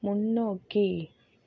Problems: low volume